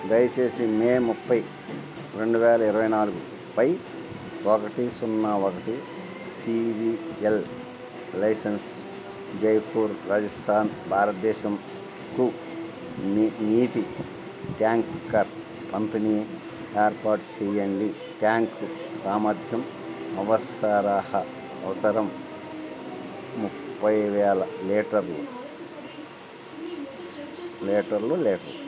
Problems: constant background noise